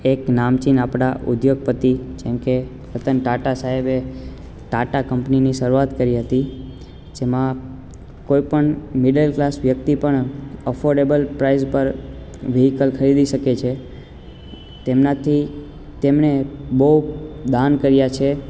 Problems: constant background noise